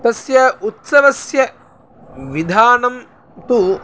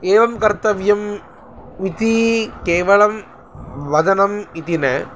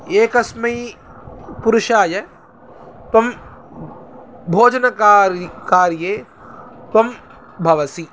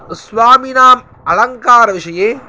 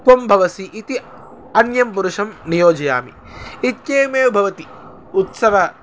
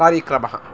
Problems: constant background noise